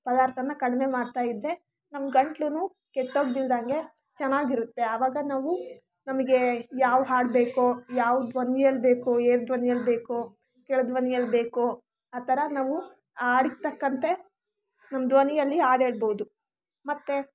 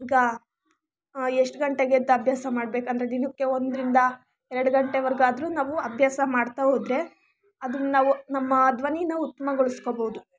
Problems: constant background noise